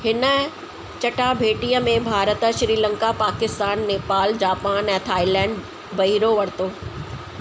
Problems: constant background noise